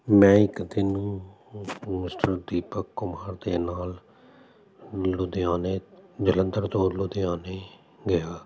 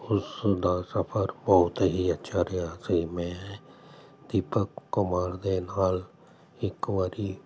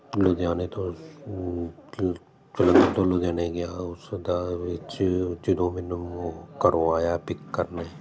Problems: constant background noise